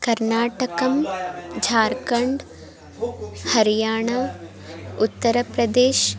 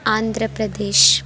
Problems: continuous background conversations